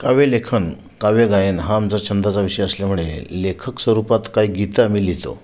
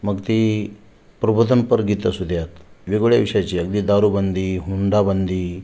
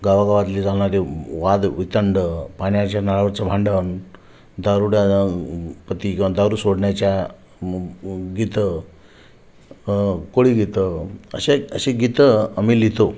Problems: constant background noise, echo